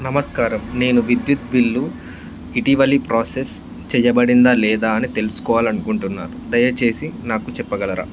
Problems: constant background noise